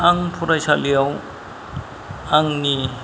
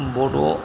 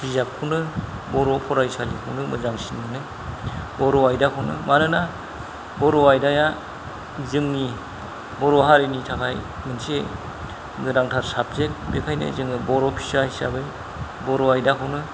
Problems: low volume